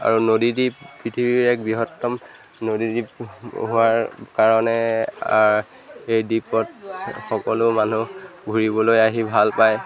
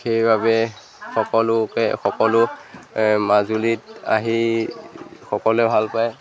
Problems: background sounds at intervals, background conversations at intervals